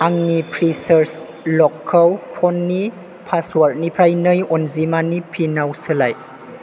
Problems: constant background noise